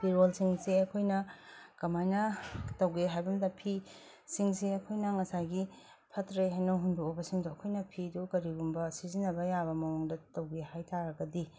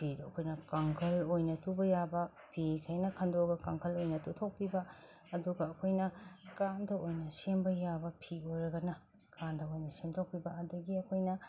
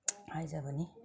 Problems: none marked